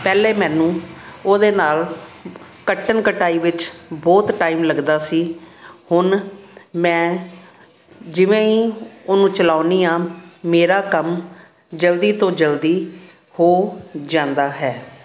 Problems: constant background noise